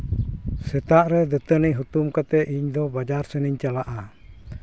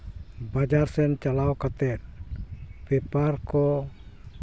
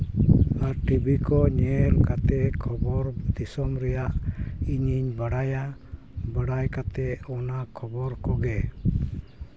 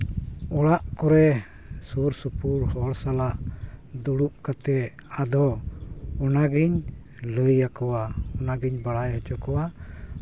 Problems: none marked